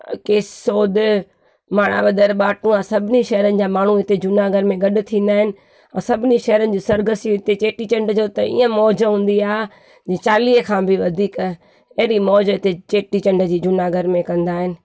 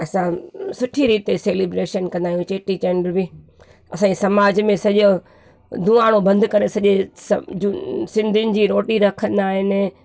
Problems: none marked